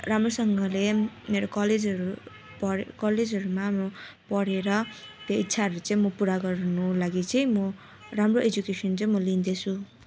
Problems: none marked